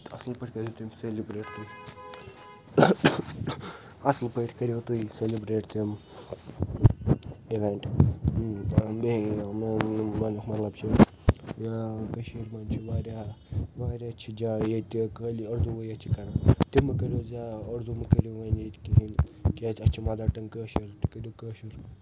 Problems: constant background noise